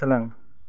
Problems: low volume